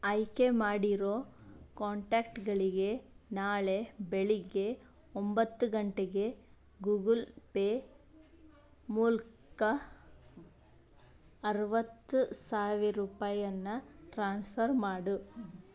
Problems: background conversations at intervals